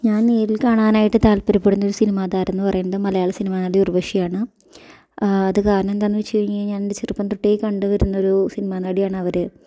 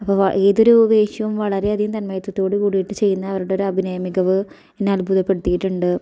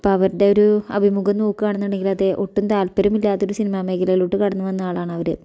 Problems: none marked